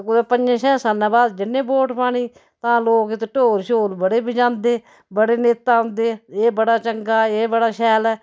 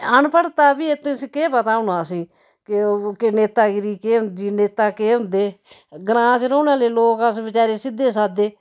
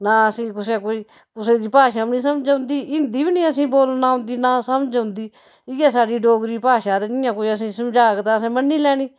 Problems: background sounds at intervals